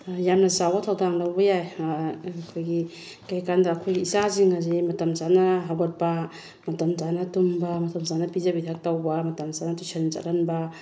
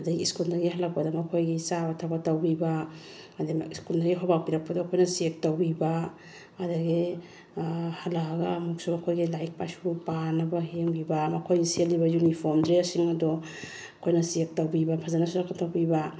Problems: background sounds at intervals